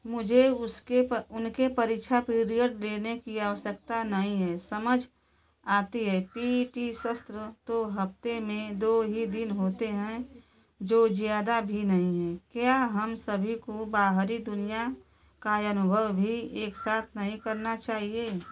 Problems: none marked